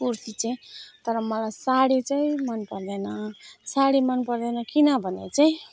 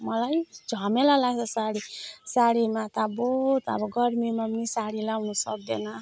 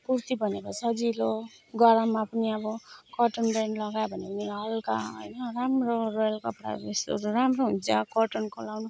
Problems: background sounds at intervals